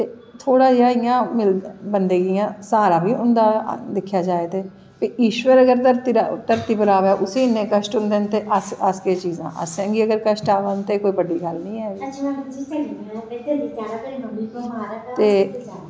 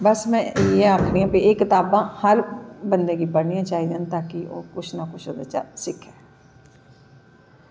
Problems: echo